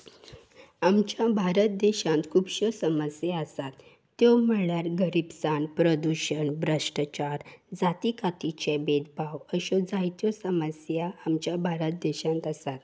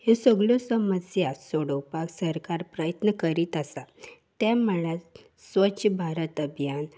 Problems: none marked